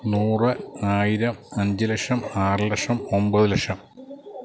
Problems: background sounds at intervals